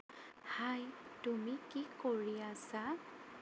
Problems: constant background noise